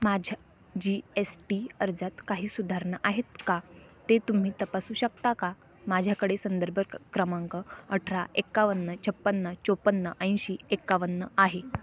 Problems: none marked